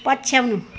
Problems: constant background noise